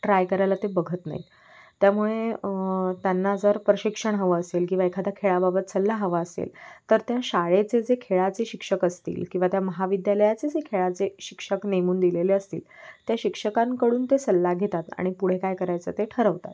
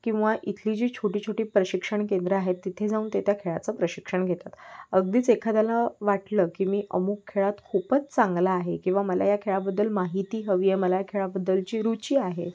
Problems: none marked